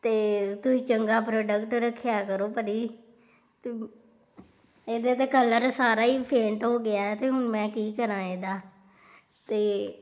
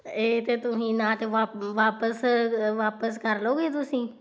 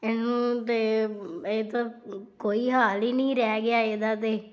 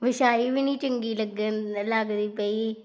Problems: background sounds at intervals